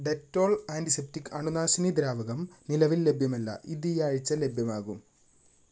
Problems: background sounds at intervals